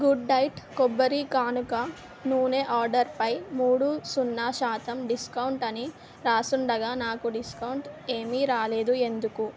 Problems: none marked